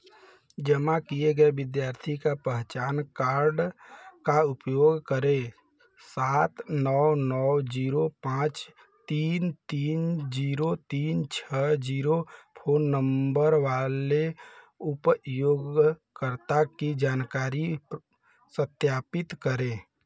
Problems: none marked